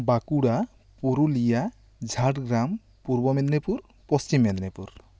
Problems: none marked